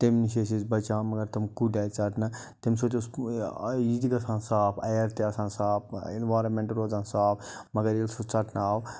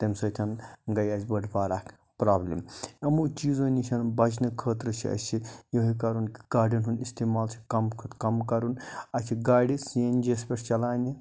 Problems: constant background noise